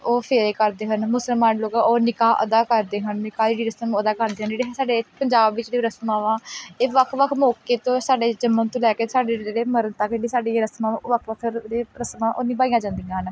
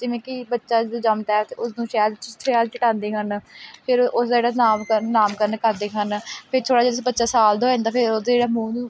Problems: background sounds at intervals